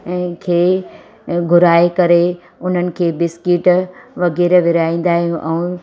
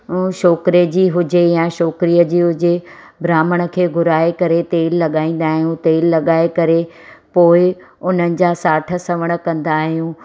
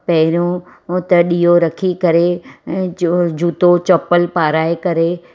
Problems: constant background noise